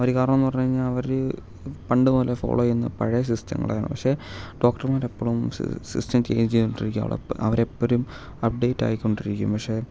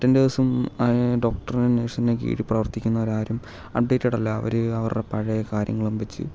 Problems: none marked